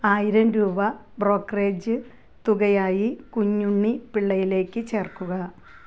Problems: background sounds at intervals